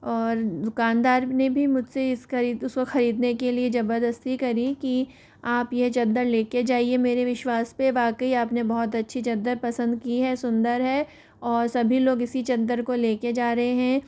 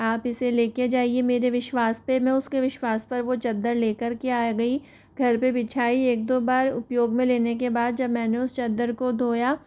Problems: none marked